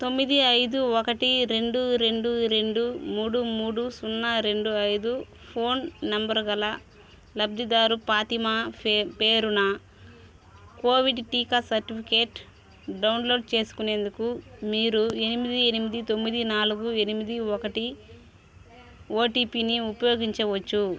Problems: constant background noise, continuous background conversations